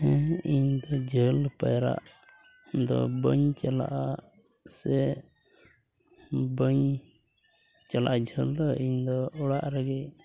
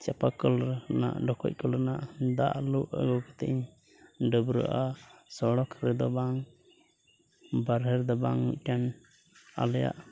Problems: background sounds at intervals